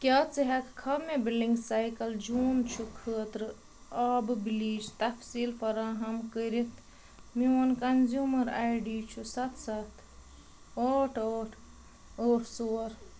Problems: constant background noise